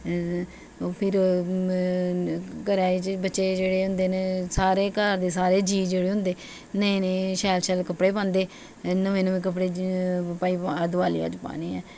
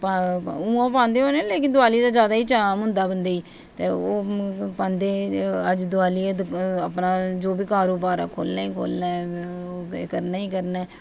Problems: constant background noise